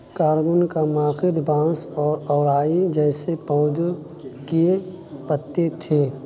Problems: constant background noise